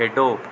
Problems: none marked